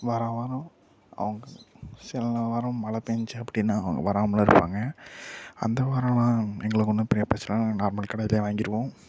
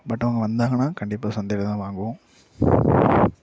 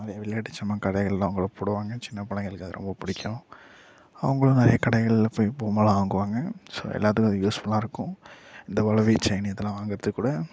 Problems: background sounds at intervals, low volume